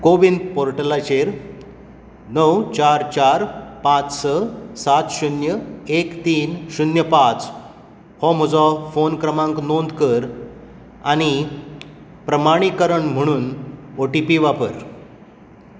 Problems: none marked